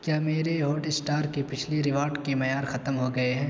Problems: constant background noise